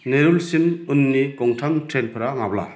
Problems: constant background noise